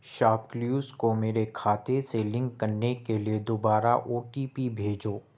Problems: none marked